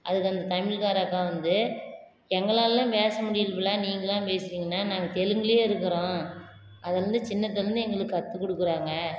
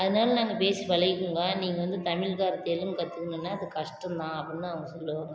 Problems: constant background noise